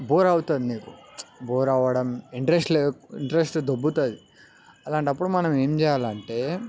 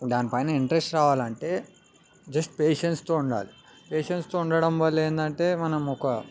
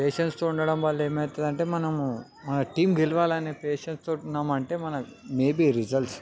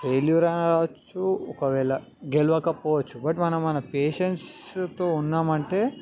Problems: none marked